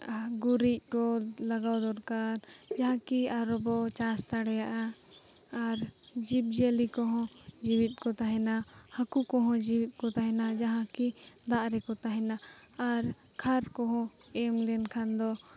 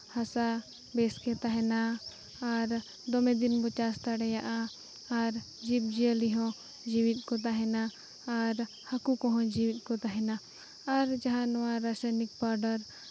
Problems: none marked